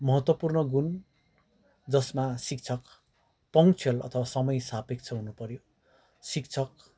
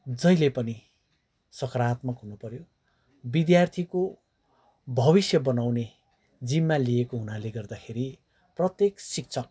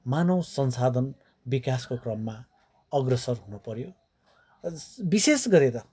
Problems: background sounds at intervals, background conversations at intervals